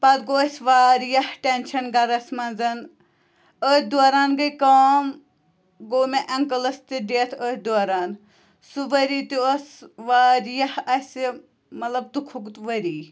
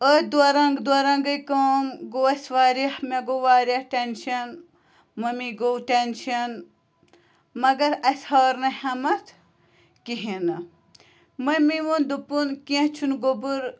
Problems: constant background noise